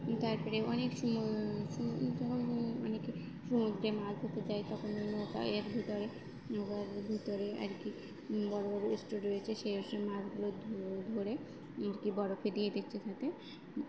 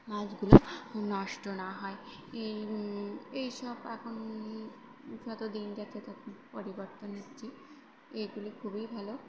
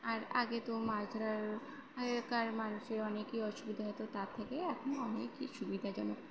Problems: background sounds at intervals, background conversations at intervals